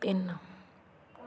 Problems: background sounds at intervals